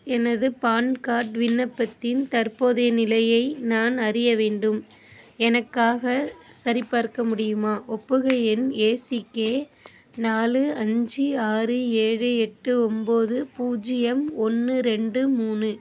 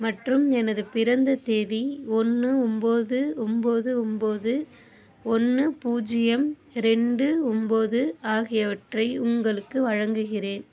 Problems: constant background noise